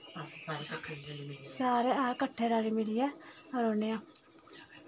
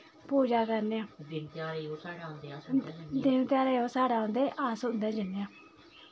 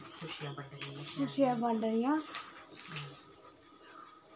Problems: constant background noise, background conversations at intervals